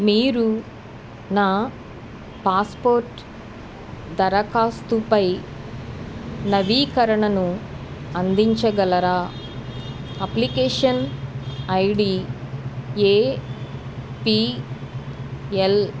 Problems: background sounds at intervals